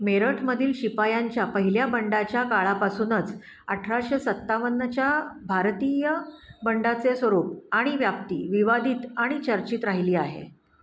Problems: constant background noise